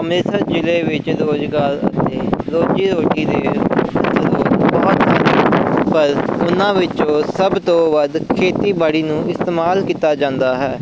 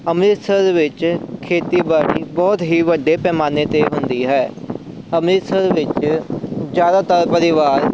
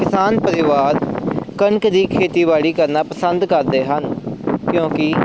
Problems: constant background noise